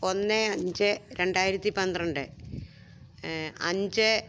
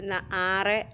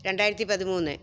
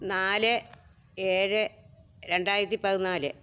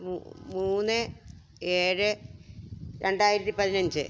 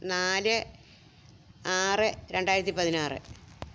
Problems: none marked